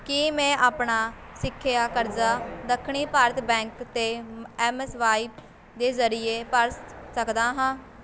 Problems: constant background noise, continuous background conversations